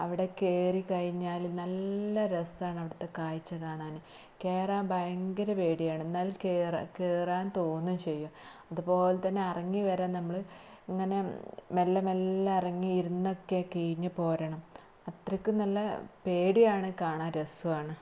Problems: low volume